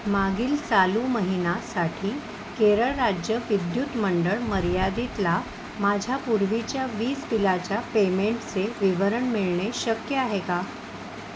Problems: constant background noise